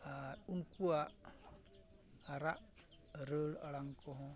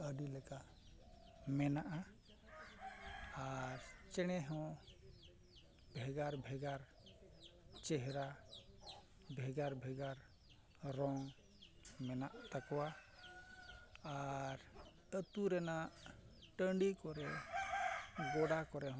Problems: background sounds at intervals